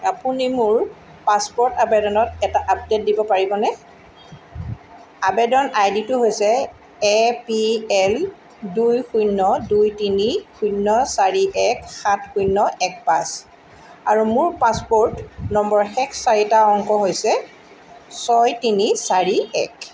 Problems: background sounds at intervals